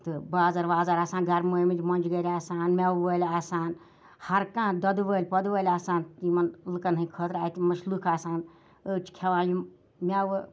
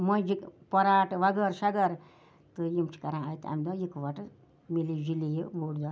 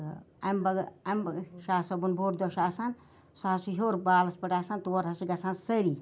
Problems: none marked